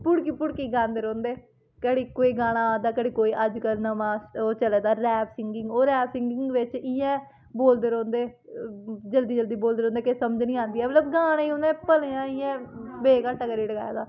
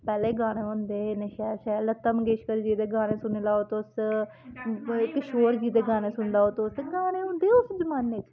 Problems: constant background noise, background conversations at intervals